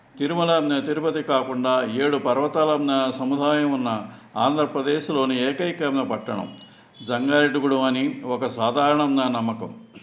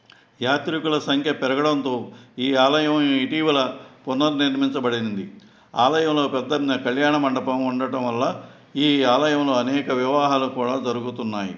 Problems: background sounds at intervals